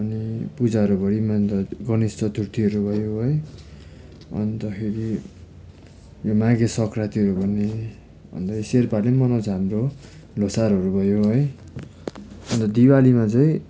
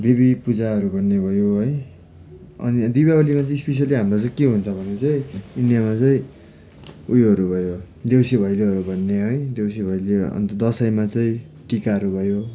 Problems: constant background noise